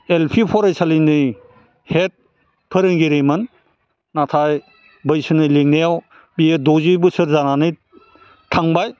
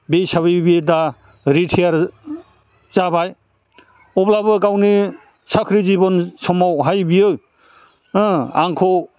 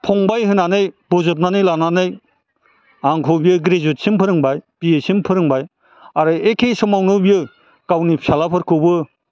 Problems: none marked